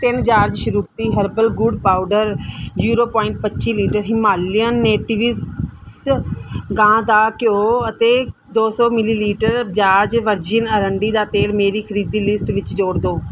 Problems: background sounds at intervals